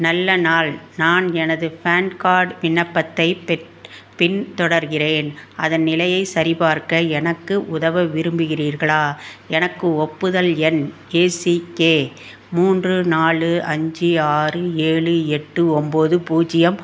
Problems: constant background noise